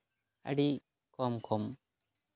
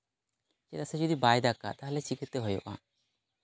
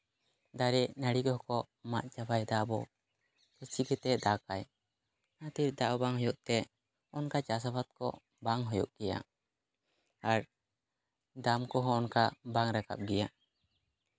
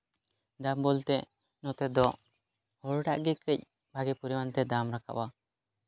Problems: none marked